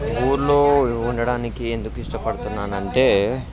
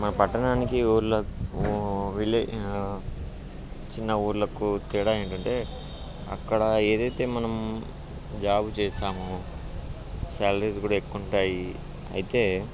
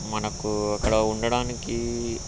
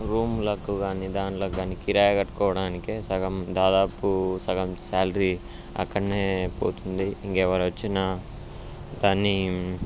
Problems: constant background noise